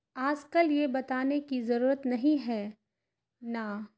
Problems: constant background noise